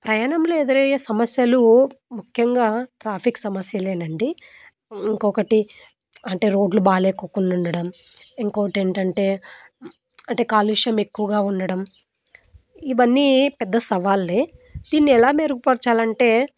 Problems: constant background noise